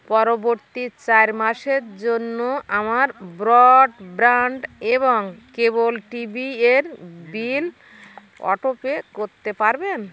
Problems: constant background noise